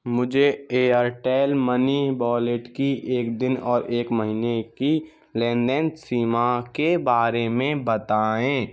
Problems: none marked